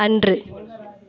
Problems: background conversations at intervals